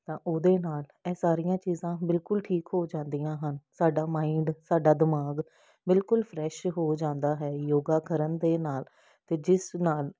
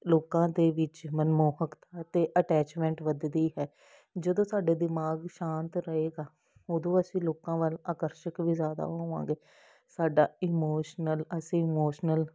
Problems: none marked